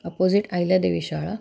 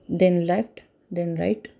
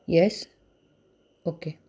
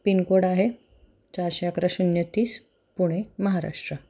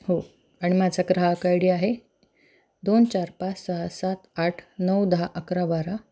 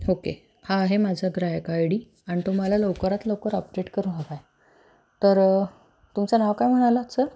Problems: background sounds at intervals